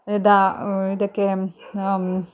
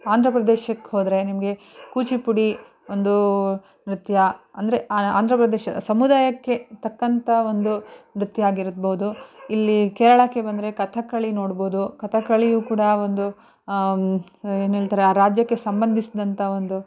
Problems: none marked